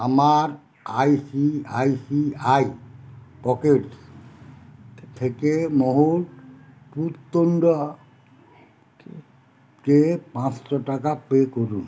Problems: none marked